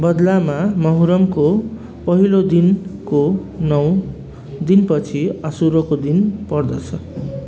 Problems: constant background noise